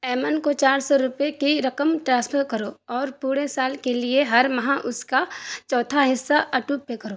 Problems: constant background noise